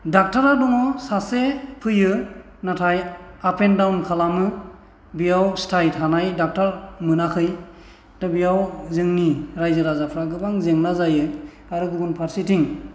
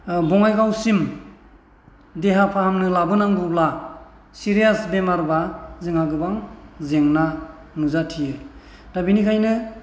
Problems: none marked